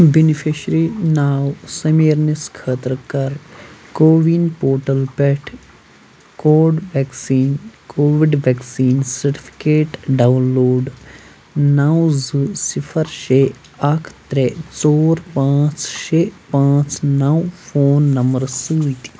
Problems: constant background noise